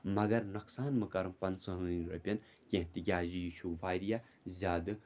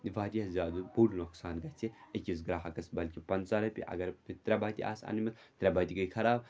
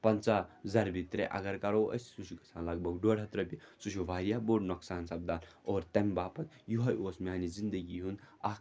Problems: background sounds at intervals